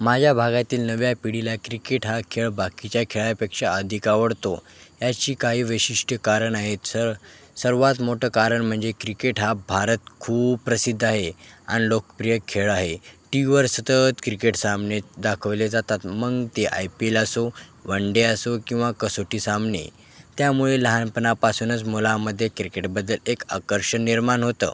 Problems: constant background noise, background conversations at intervals